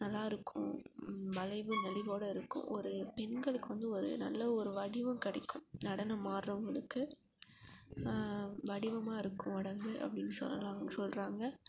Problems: background sounds at intervals, low volume